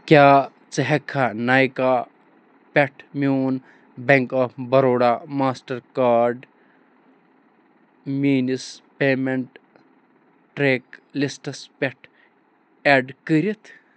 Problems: none marked